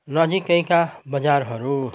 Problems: background sounds at intervals